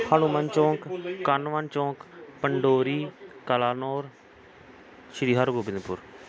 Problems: background conversations at intervals